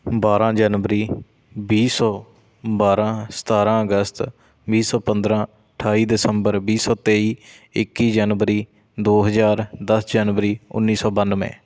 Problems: constant background noise